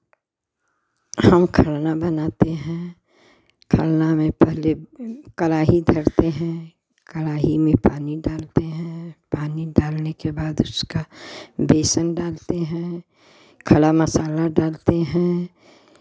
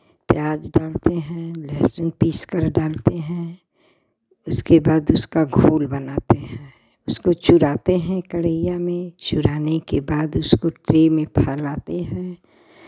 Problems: none marked